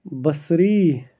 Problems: background sounds at intervals